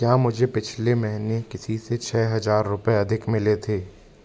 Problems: constant background noise, background conversations at intervals